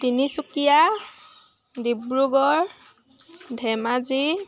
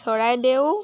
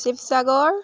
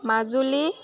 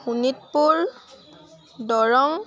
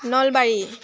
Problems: constant background noise